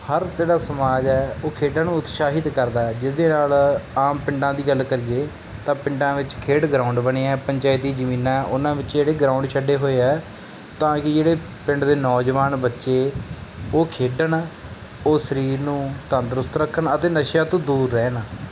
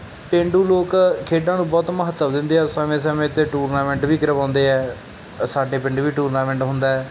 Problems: none marked